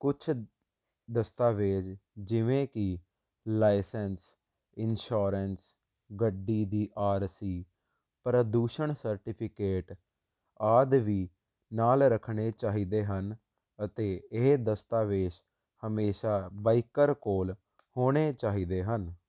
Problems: constant background noise